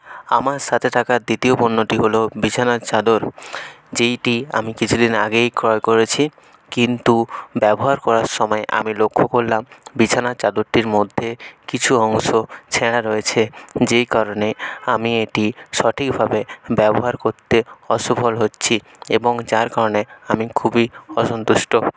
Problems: background sounds at intervals